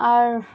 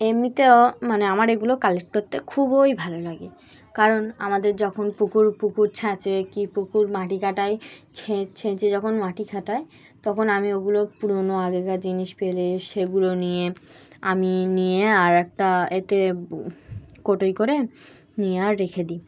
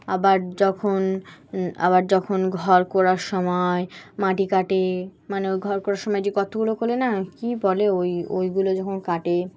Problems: background sounds at intervals, background conversations at intervals